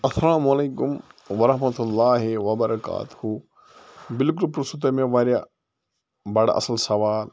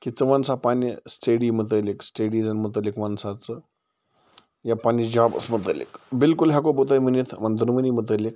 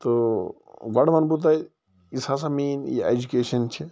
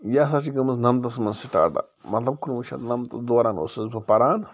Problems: background sounds at intervals